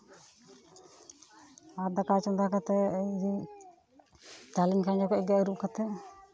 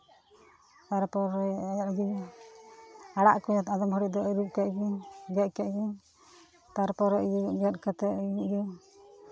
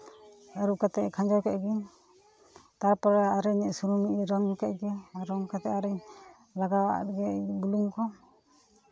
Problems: continuous background conversations